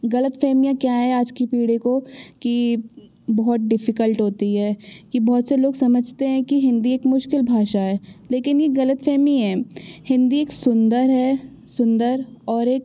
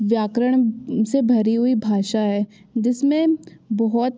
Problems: none marked